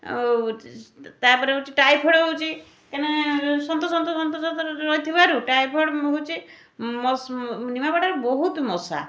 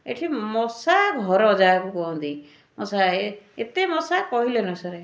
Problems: none marked